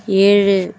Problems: constant background noise